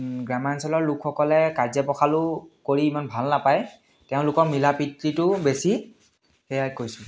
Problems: constant background noise, background conversations at intervals, echo